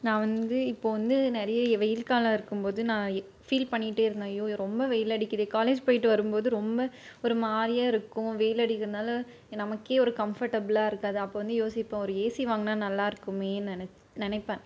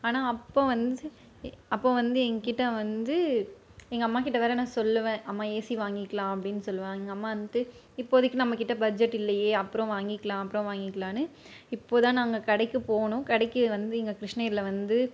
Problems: none marked